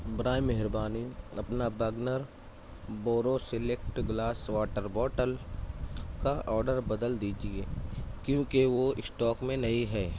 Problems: constant background noise, low volume